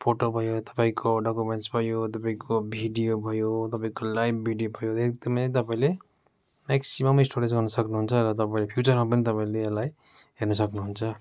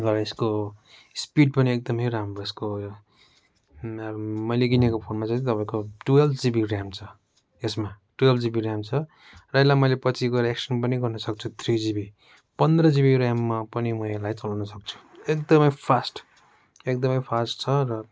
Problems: none marked